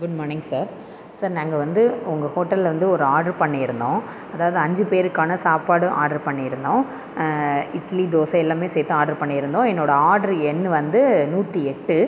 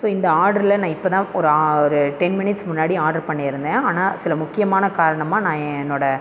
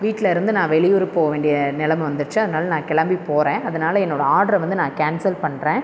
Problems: constant background noise